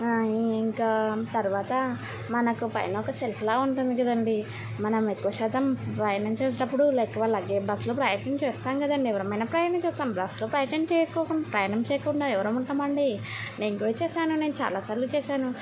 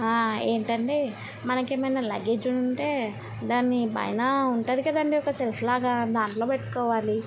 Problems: constant background noise